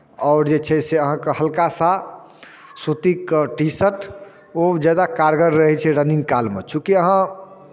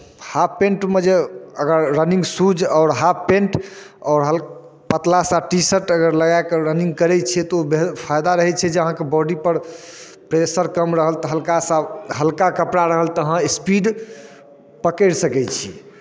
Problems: none marked